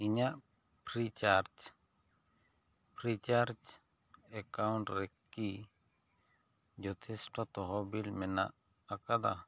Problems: none marked